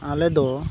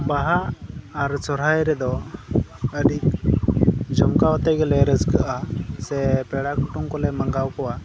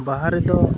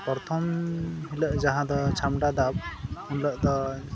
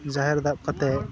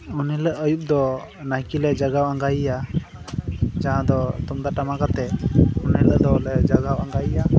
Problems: constant background noise